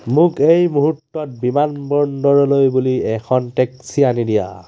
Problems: constant background noise